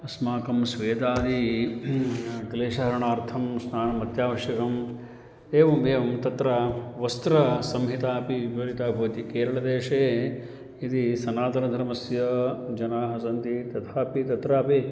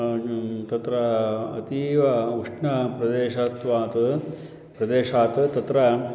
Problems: constant background noise